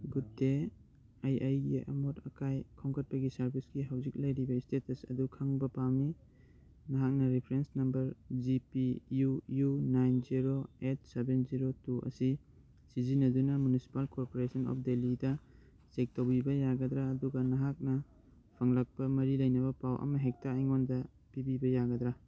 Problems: none marked